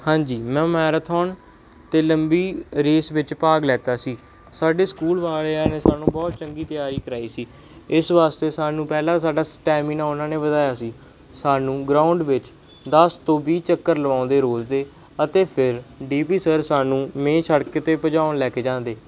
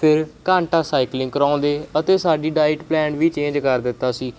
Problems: background sounds at intervals